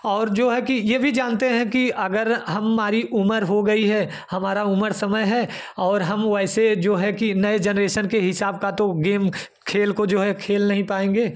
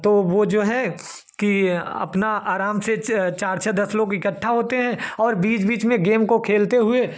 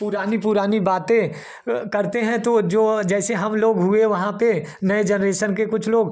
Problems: none marked